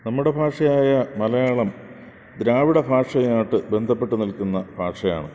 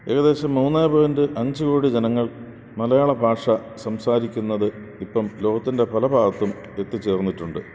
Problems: constant background noise